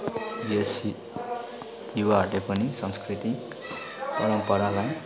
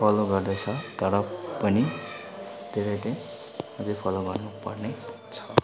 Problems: constant background noise